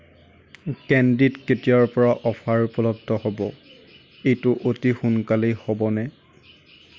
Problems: background sounds at intervals